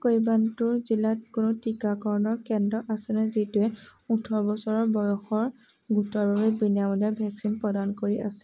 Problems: constant background noise